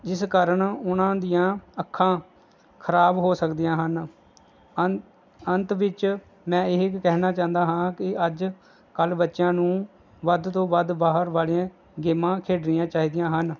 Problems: none marked